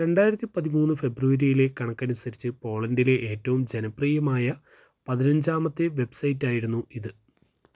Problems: none marked